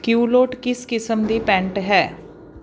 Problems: background sounds at intervals